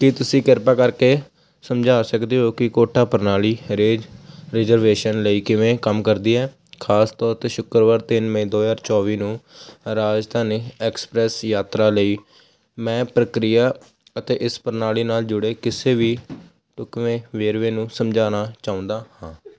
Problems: constant background noise